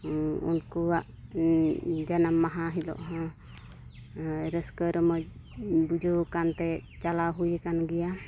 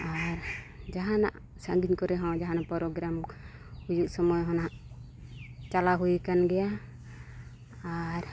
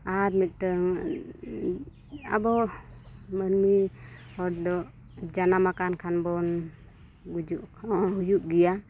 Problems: constant background noise